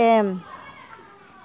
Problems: background conversations at intervals